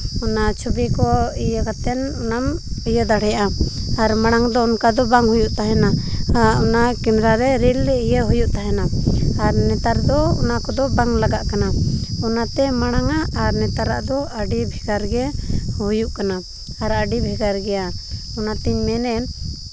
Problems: constant background noise